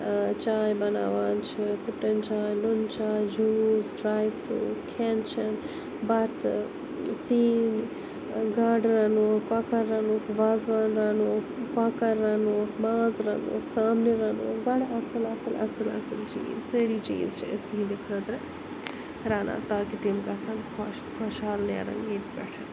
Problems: constant background noise